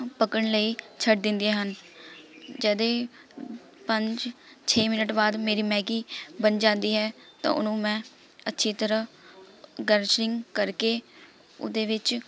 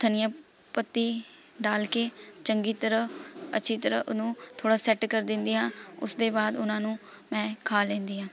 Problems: constant background noise